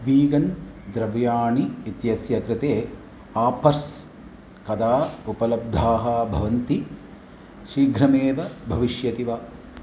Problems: constant background noise